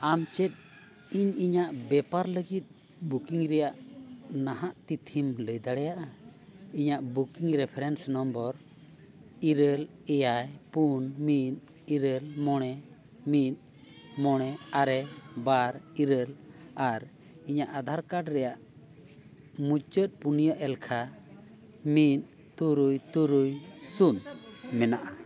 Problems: none marked